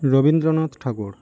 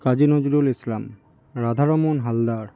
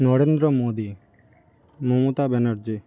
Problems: background sounds at intervals